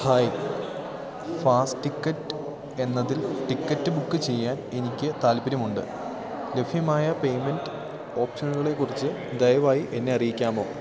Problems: constant background noise